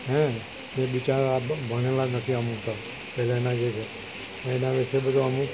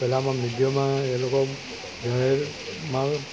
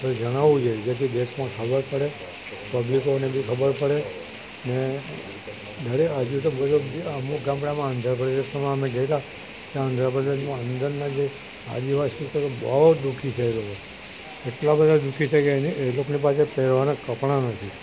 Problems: constant background noise